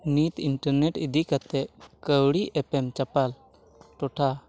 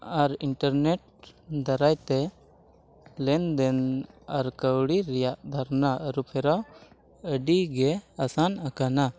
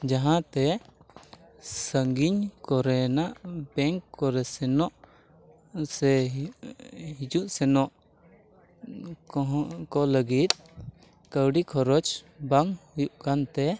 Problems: none marked